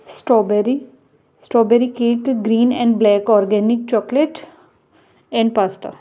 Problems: none marked